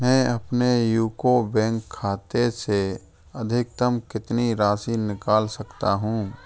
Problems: none marked